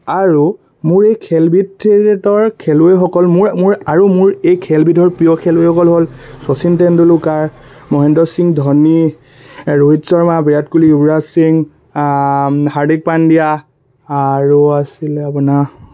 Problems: constant background noise